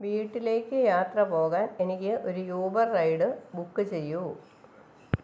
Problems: none marked